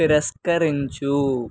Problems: background sounds at intervals